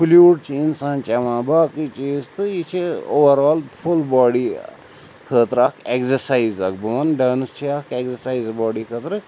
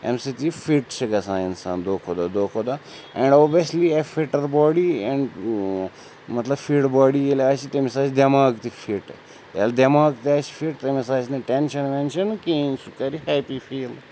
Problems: none marked